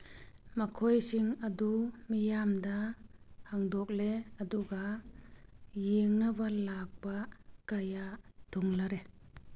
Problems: none marked